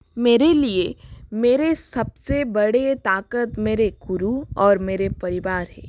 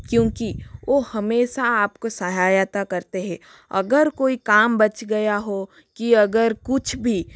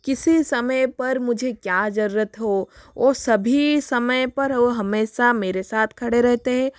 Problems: constant background noise